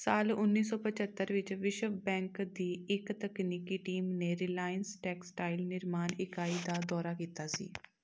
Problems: background sounds at intervals